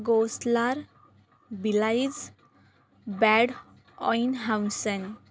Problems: constant background noise